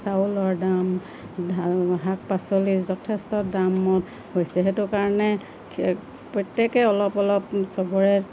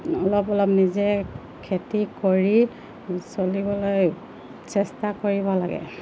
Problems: constant background noise, low volume